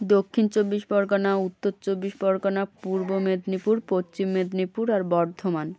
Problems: background conversations at intervals